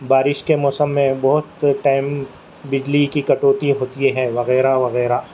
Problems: constant background noise, low volume